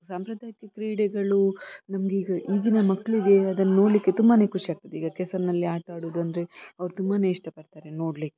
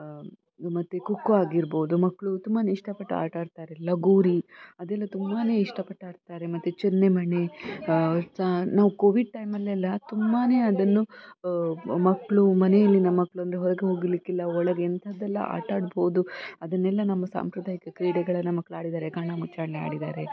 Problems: continuous background conversations